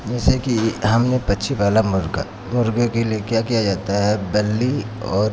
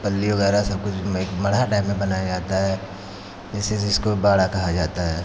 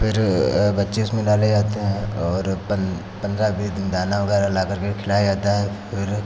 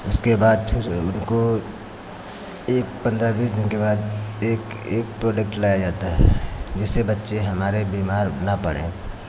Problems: constant background noise